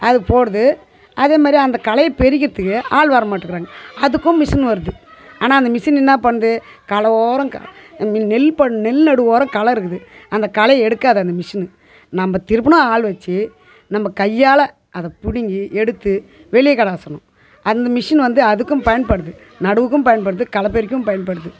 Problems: continuous background conversations